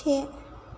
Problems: constant background noise